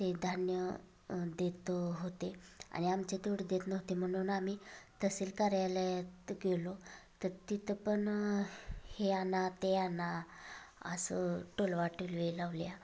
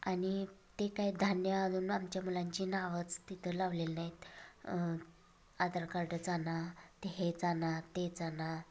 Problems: constant background noise, continuous background conversations